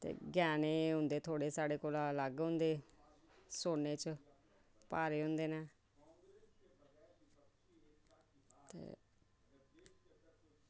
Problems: low volume